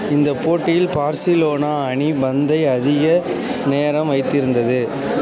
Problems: constant background noise, continuous background conversations